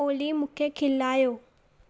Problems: echo